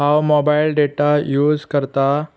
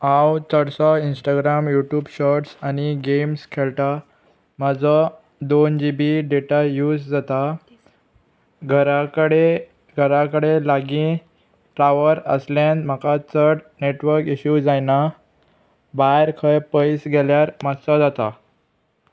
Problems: constant background noise